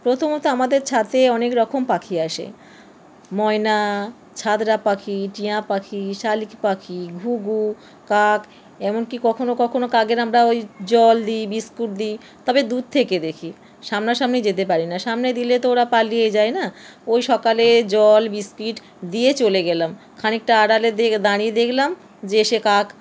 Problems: constant background noise